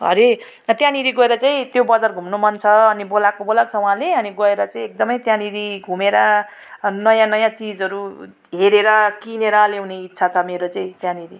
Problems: none marked